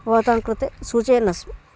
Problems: none marked